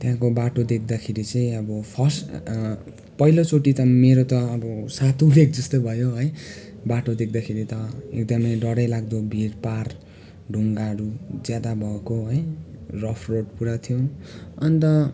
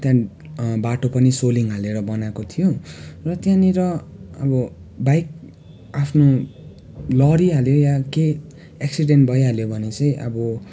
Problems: constant background noise, continuous background conversations